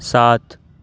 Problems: none marked